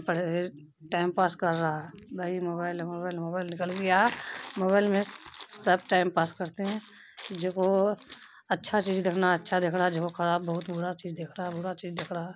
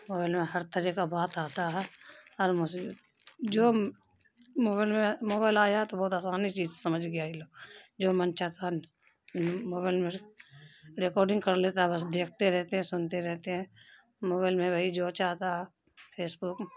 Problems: background sounds at intervals